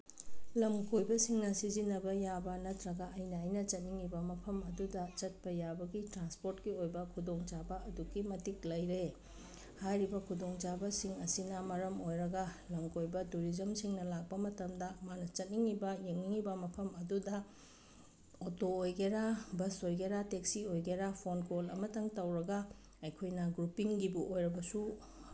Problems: none marked